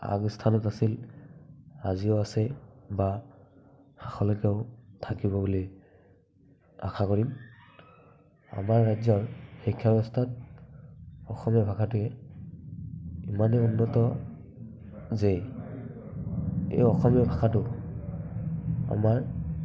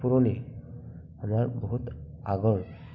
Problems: none marked